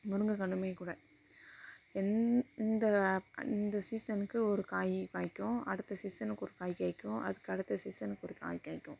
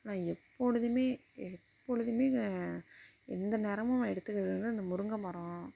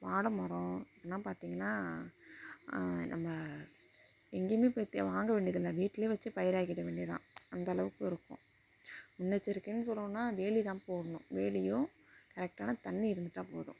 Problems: constant background noise, low volume